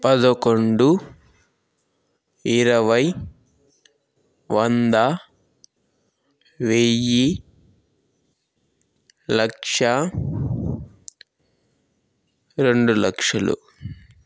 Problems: background sounds at intervals